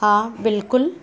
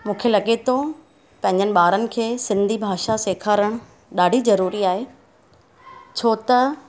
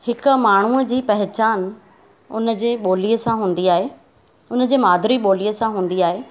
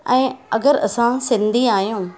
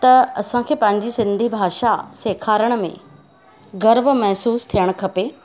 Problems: constant background noise